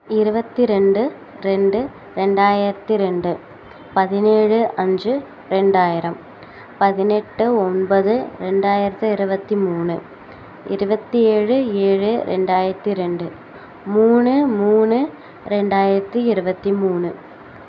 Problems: constant background noise